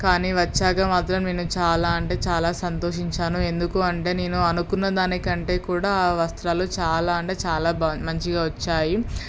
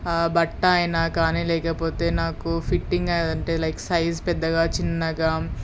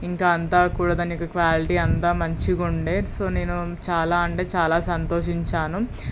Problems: none marked